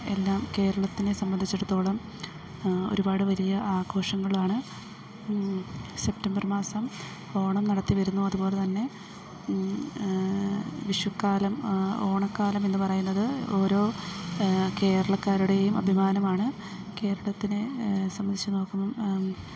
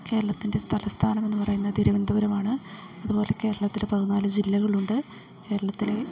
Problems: background sounds at intervals, low volume